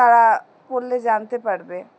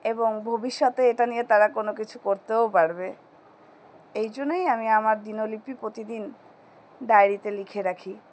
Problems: constant background noise